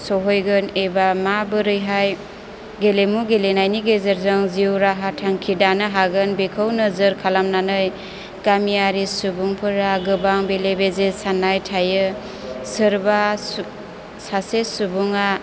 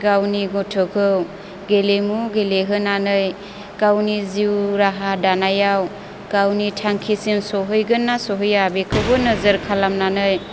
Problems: none marked